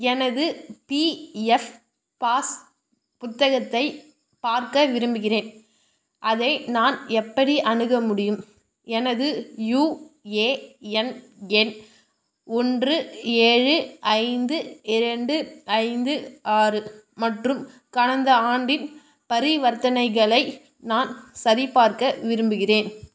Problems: none marked